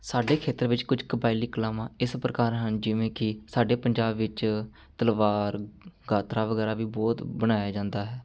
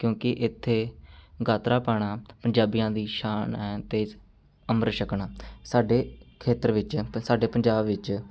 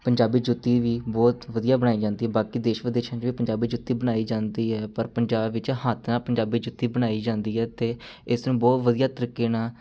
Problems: background sounds at intervals